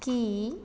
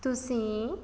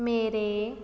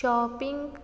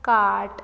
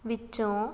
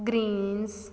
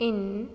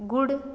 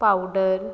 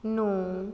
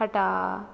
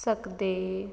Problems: background sounds at intervals